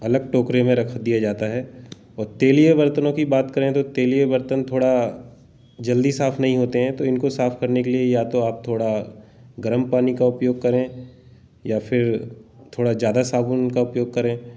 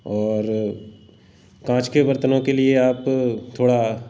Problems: background sounds at intervals